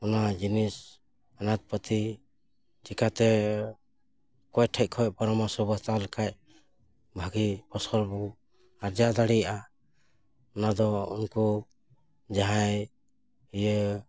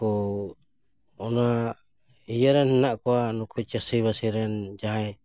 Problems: background sounds at intervals